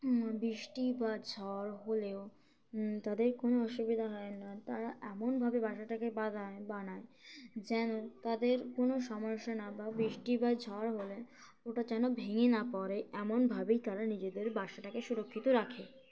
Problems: constant background noise, background conversations at intervals